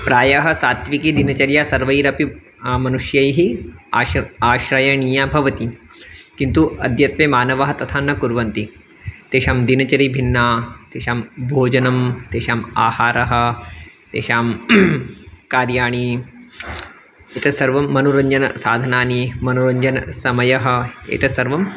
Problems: none marked